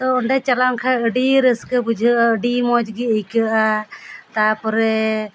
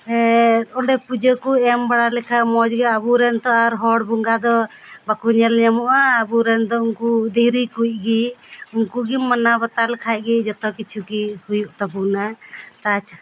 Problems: none marked